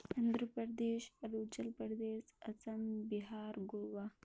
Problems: constant background noise, low volume